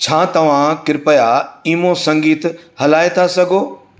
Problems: none marked